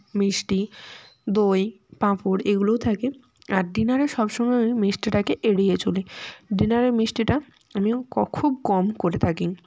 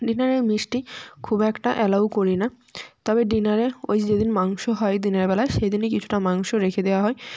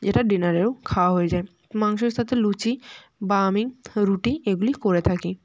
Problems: background sounds at intervals, background conversations at intervals